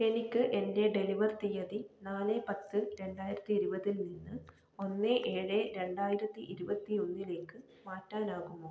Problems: low volume